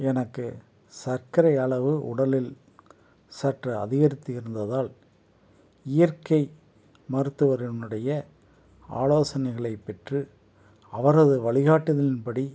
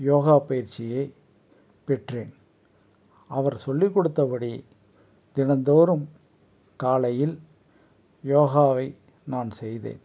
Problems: none marked